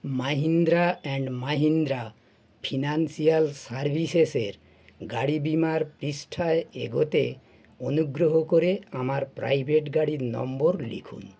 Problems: none marked